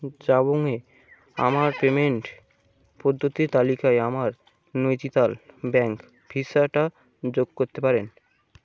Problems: constant background noise